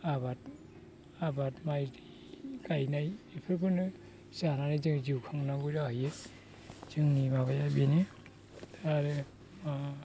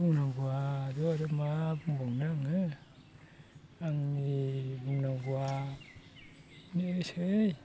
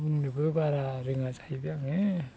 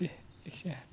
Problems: constant background noise